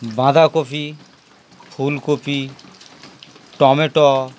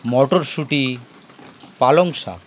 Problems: constant background noise